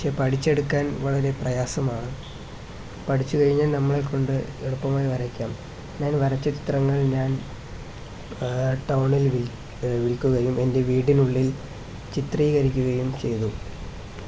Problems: constant background noise